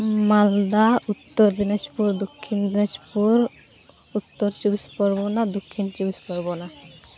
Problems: constant background noise, background conversations at intervals